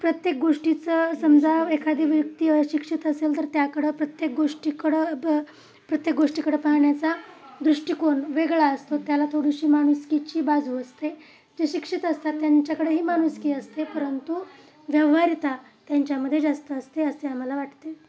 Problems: none marked